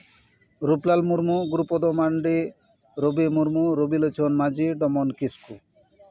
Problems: continuous background conversations